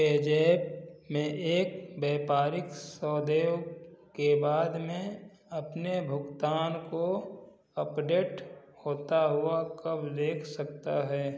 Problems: constant background noise